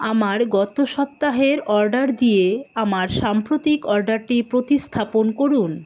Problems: constant background noise